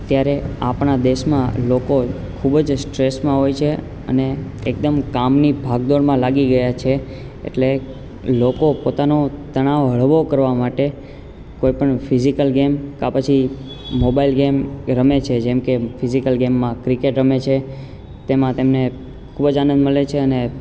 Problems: constant background noise